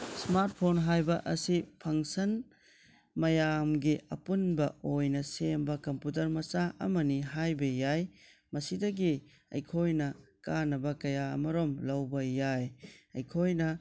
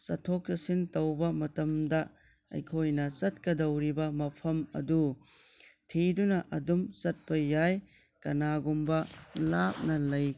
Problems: low volume